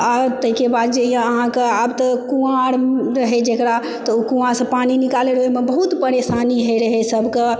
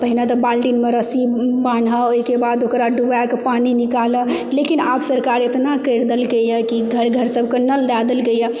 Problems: constant background noise, background conversations at intervals